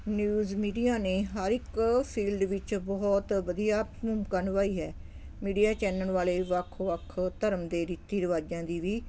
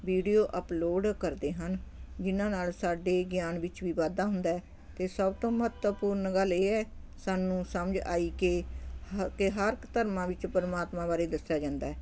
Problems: constant background noise